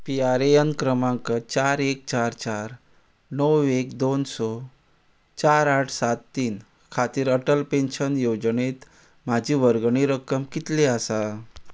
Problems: background sounds at intervals